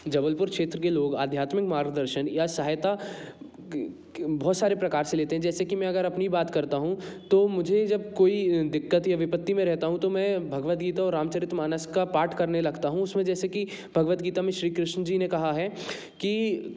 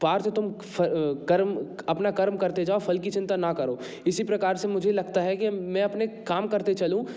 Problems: background sounds at intervals